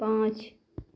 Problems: constant background noise